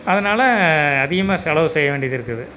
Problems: constant background noise